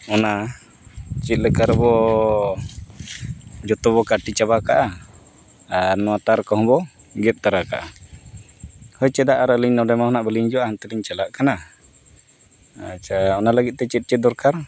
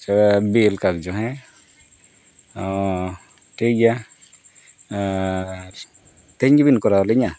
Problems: background sounds at intervals